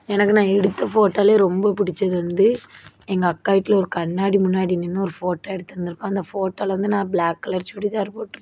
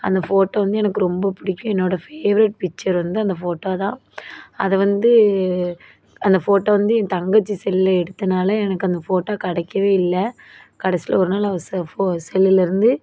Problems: none marked